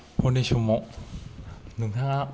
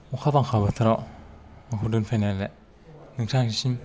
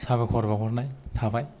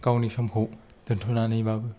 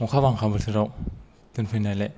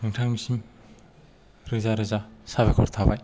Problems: low volume